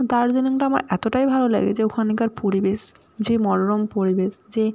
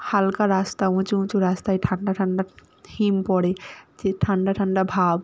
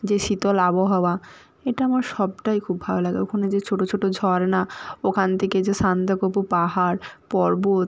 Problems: constant background noise